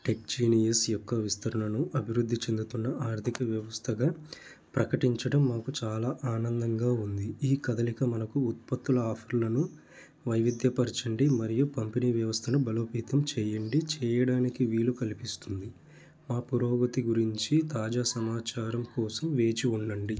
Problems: background sounds at intervals